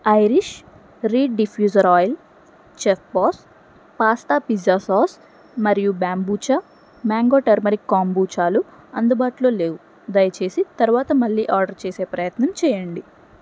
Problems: none marked